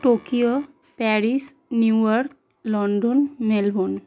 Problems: background sounds at intervals